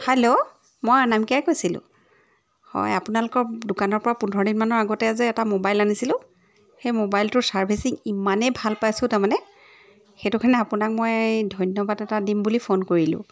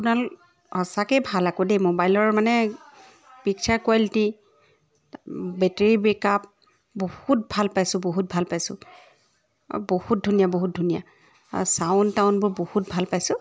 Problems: background sounds at intervals